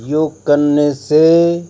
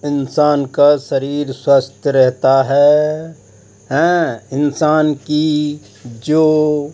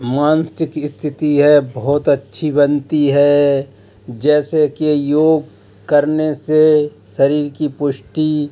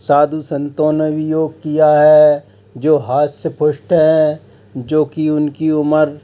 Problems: constant background noise